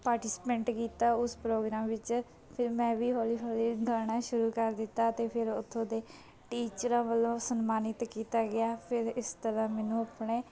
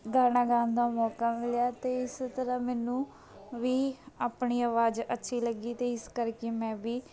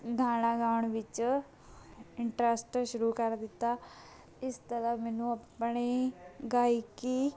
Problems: none marked